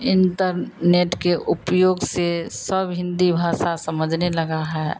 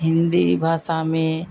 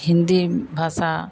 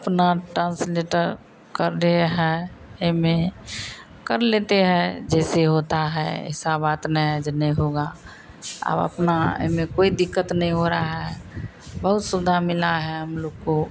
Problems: none marked